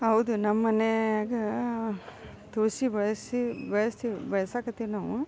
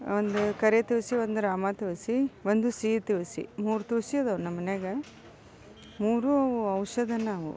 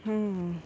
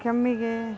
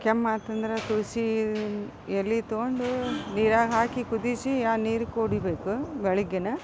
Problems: background sounds at intervals